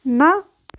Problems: none marked